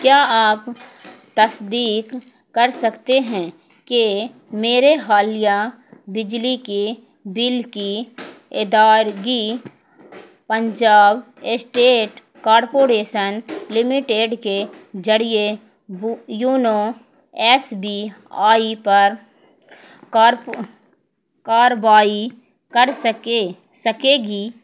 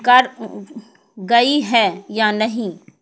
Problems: background sounds at intervals